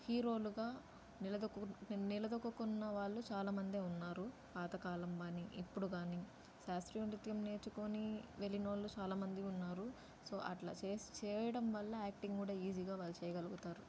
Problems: low volume